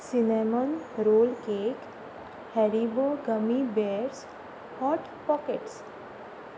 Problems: constant background noise